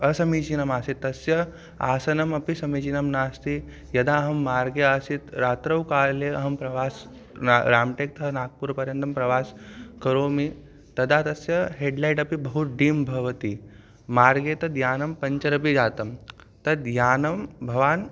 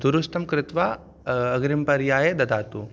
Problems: constant background noise